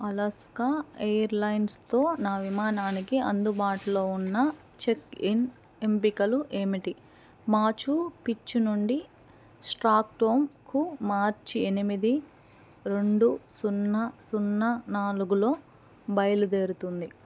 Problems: background sounds at intervals